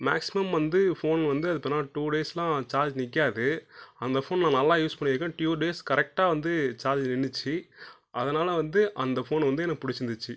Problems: low volume